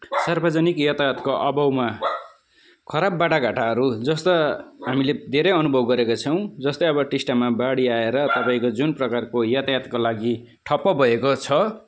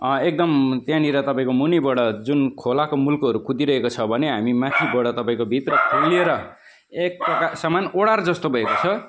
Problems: constant background noise